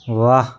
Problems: constant background noise